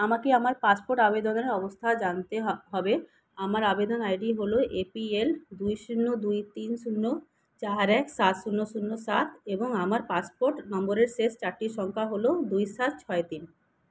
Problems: none marked